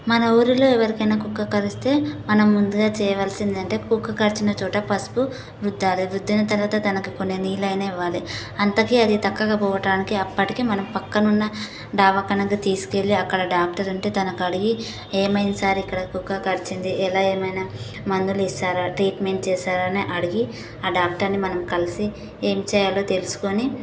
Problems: constant background noise